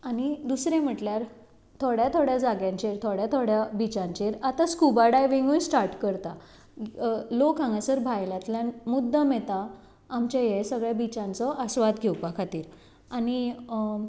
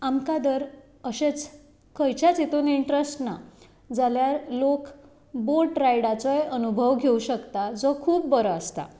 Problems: background sounds at intervals